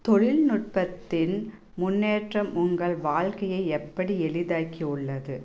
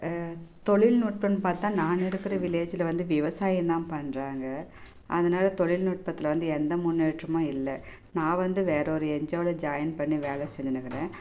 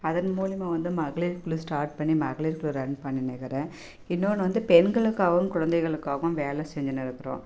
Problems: background sounds at intervals